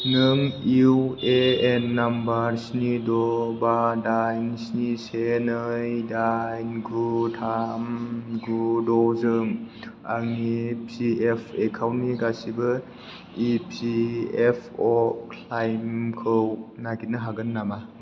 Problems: low volume